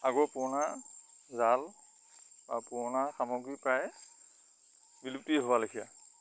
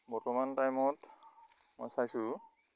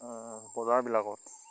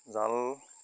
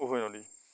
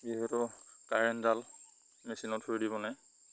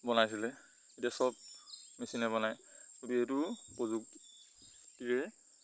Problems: constant background noise